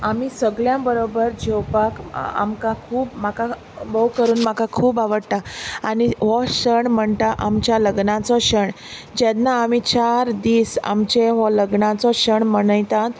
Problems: constant background noise